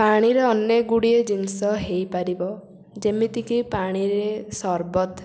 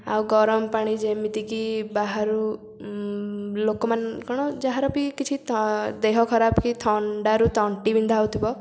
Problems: constant background noise